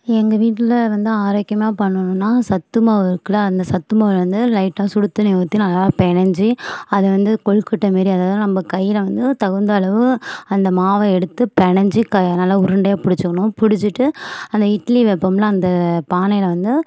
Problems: none marked